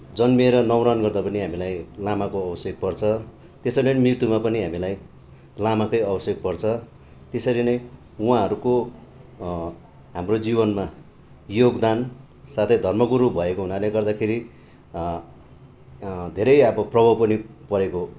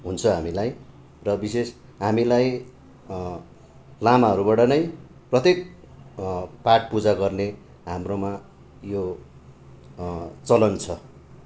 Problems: none marked